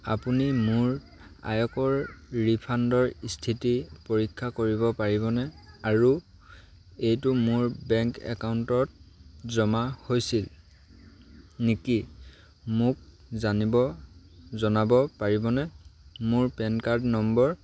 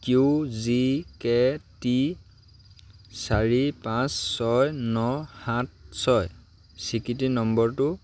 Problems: none marked